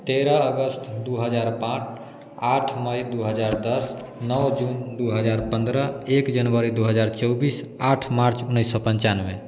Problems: none marked